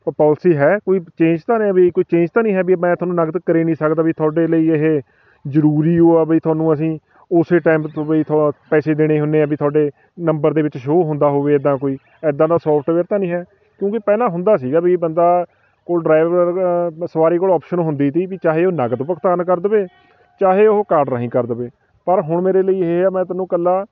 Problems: constant background noise, background conversations at intervals